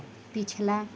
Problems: none marked